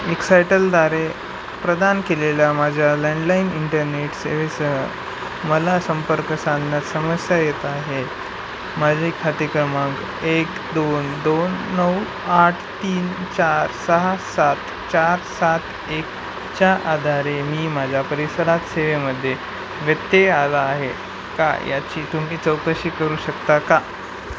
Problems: constant background noise